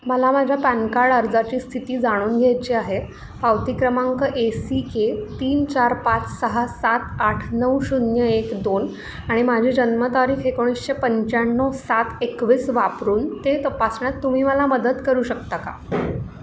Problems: none marked